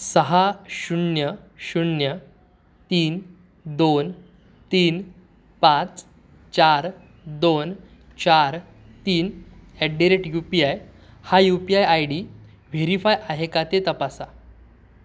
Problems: none marked